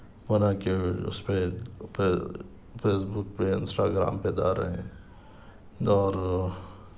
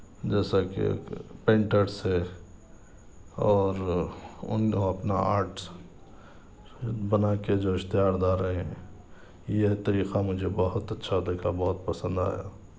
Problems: none marked